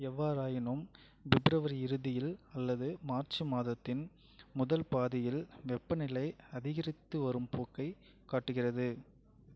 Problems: low volume